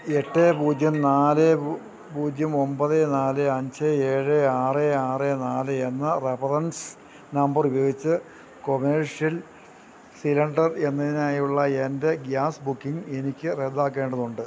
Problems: none marked